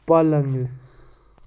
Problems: constant background noise